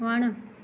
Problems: none marked